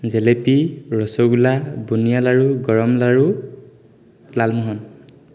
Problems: constant background noise, echo